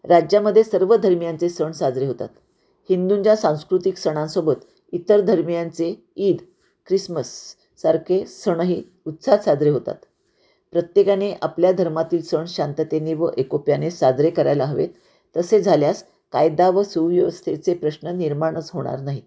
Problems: none marked